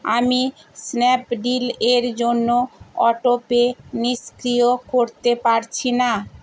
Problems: constant background noise